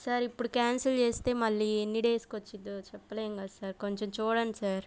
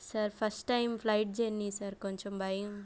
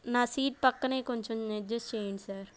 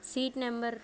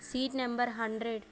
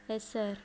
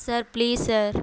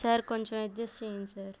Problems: background sounds at intervals